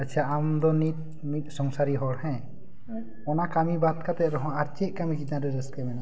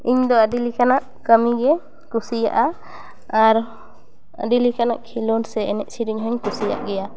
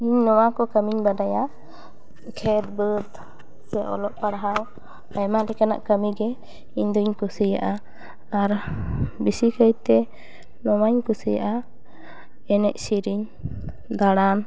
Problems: background sounds at intervals